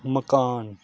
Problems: constant background noise